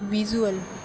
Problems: background sounds at intervals